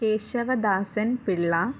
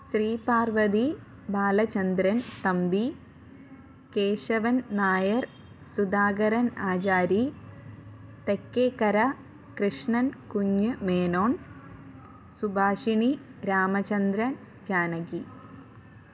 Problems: low volume